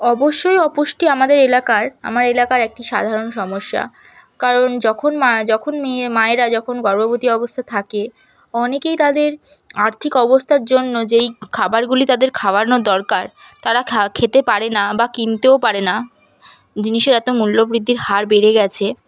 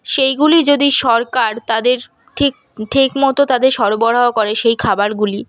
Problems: none marked